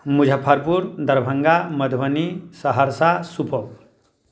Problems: background sounds at intervals